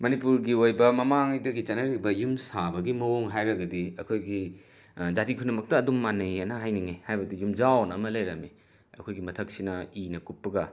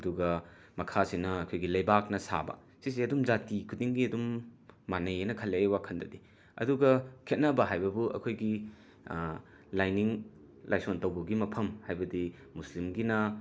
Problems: background sounds at intervals